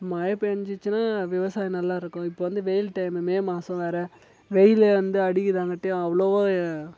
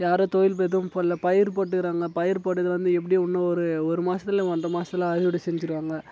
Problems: none marked